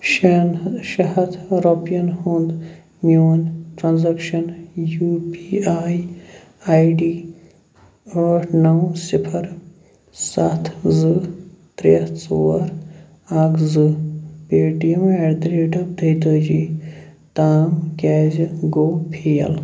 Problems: none marked